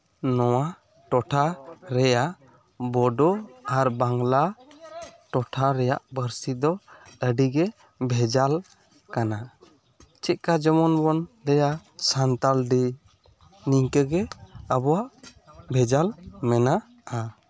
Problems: none marked